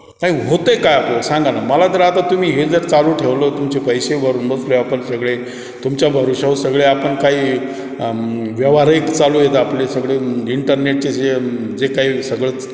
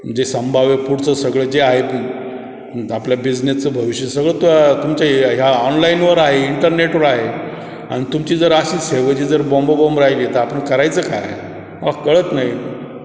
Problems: none marked